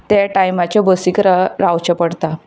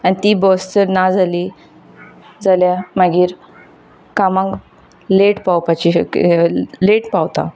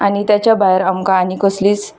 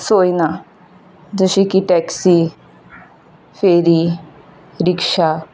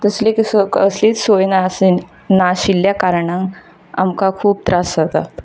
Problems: none marked